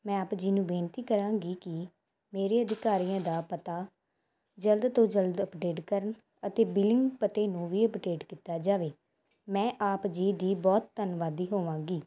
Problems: none marked